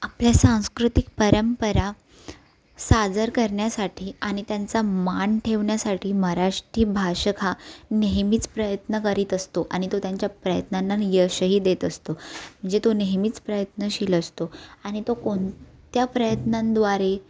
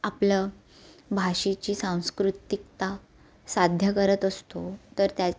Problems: none marked